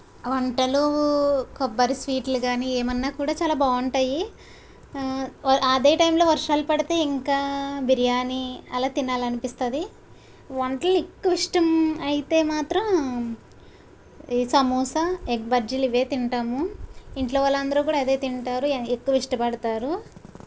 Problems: none marked